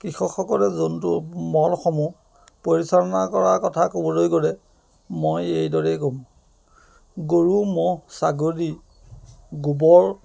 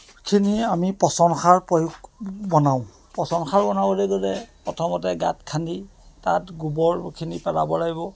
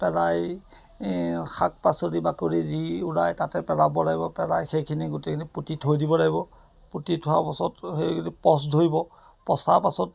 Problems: background sounds at intervals